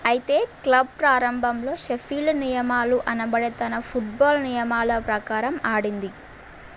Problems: none marked